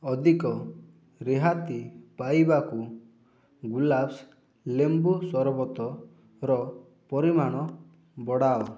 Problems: none marked